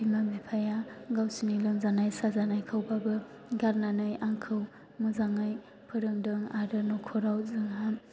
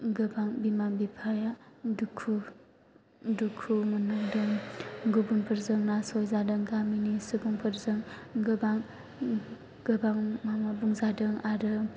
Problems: none marked